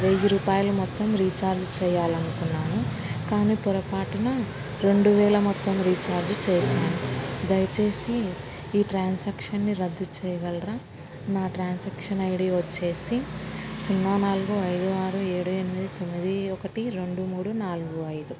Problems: constant background noise